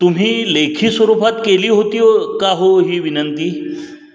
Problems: background sounds at intervals